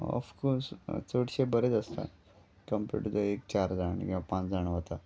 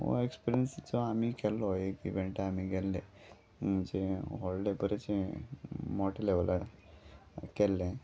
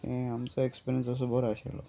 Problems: background sounds at intervals